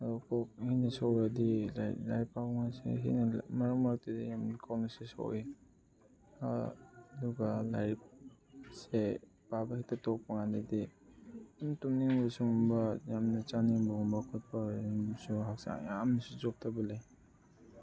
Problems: background conversations at intervals